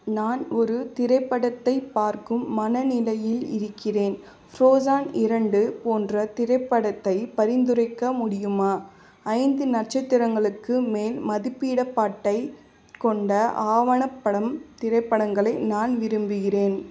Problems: constant background noise